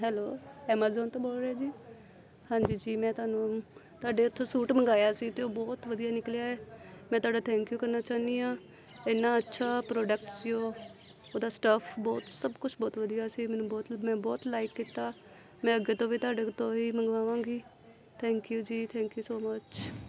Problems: background sounds at intervals, background conversations at intervals